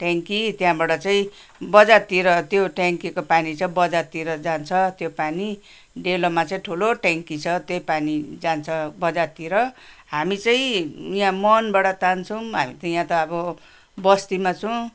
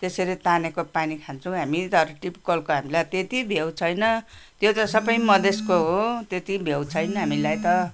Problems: background sounds at intervals